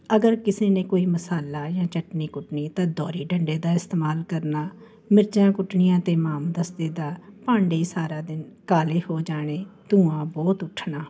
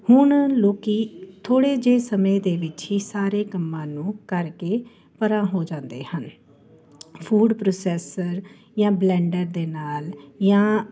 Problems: constant background noise